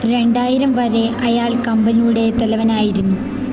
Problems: constant background noise